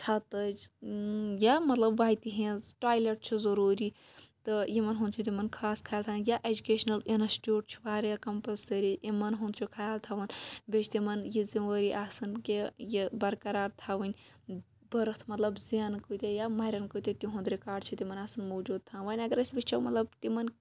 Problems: none marked